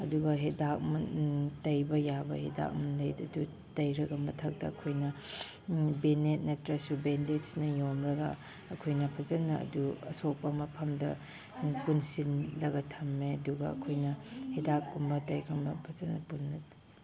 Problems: background sounds at intervals